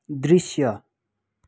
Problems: none marked